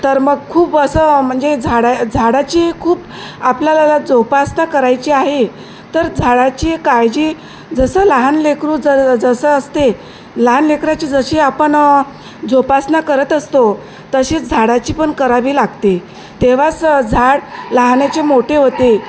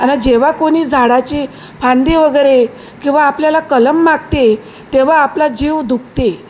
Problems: constant background noise